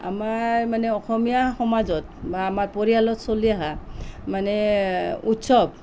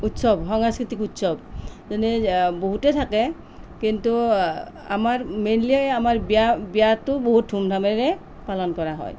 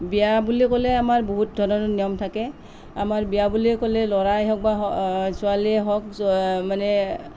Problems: background conversations at intervals